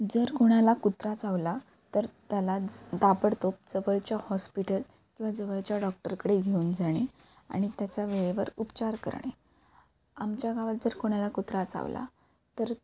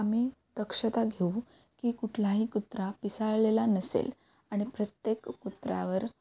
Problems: background sounds at intervals